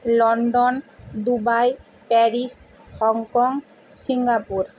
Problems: constant background noise